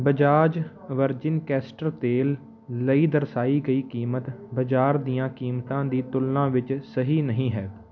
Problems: background sounds at intervals